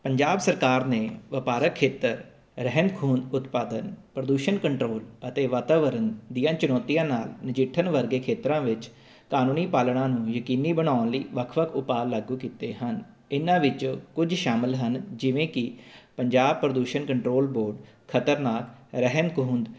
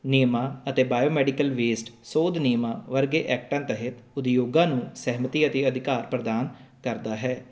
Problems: none marked